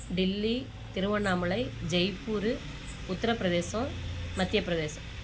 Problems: constant background noise